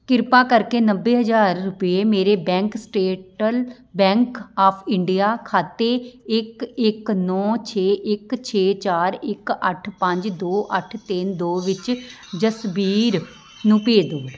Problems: constant background noise